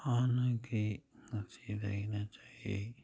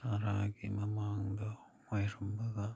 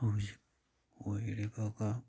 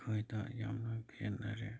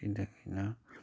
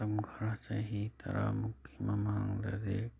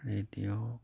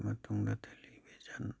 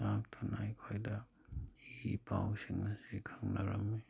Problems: none marked